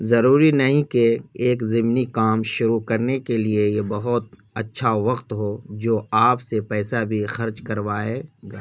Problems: background sounds at intervals